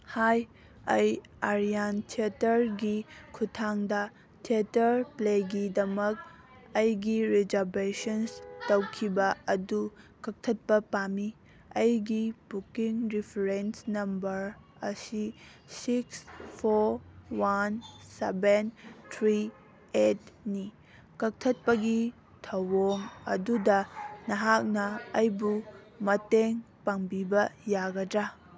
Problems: background sounds at intervals, background conversations at intervals